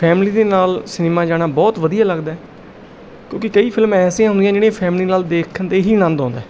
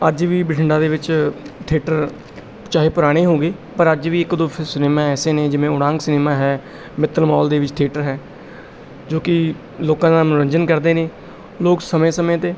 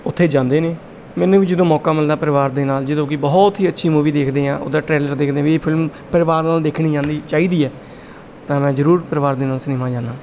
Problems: none marked